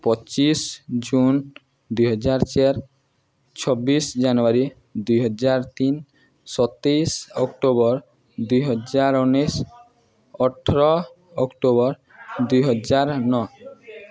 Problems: continuous background conversations